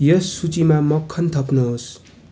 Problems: background sounds at intervals